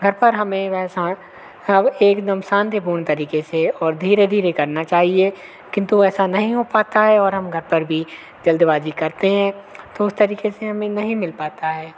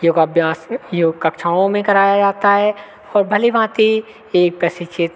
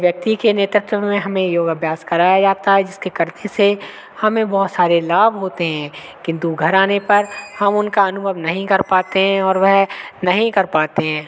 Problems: constant background noise